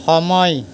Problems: constant background noise